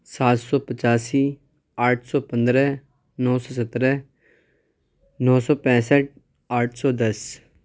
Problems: none marked